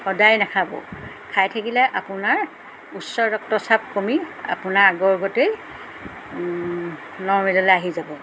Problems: background sounds at intervals